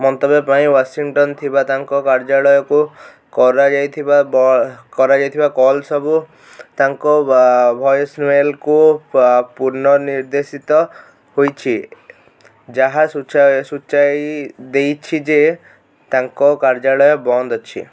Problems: constant background noise